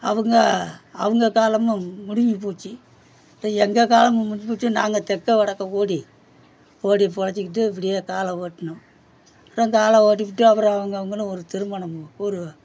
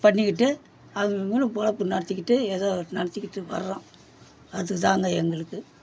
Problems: none marked